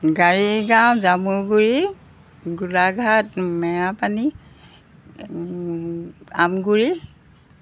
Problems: background sounds at intervals